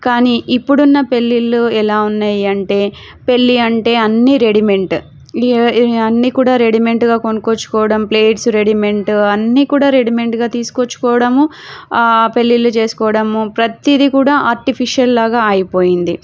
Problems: none marked